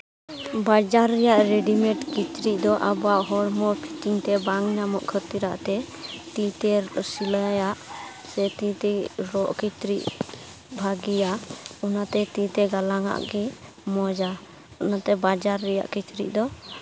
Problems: constant background noise